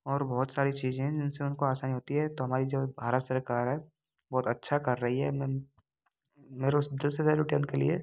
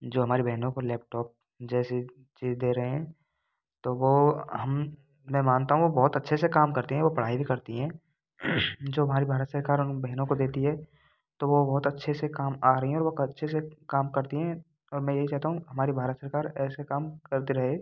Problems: none marked